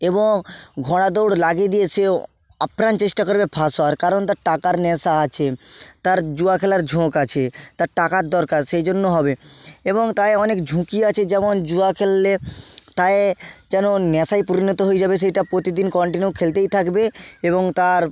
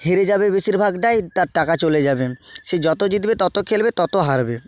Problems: none marked